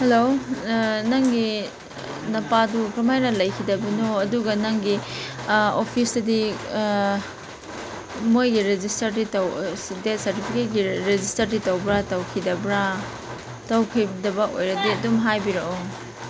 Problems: constant background noise